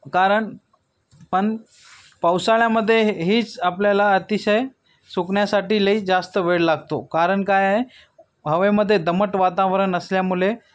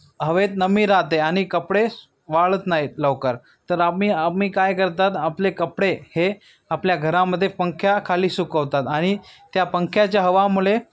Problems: background sounds at intervals